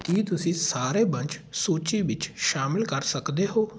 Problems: constant background noise